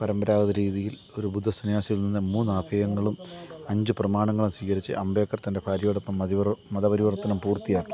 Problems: constant background noise, low volume